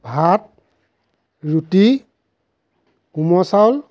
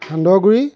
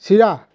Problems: background sounds at intervals